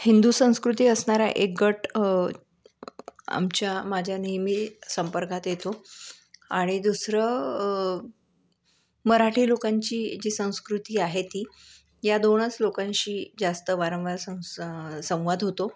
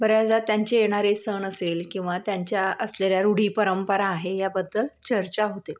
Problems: none marked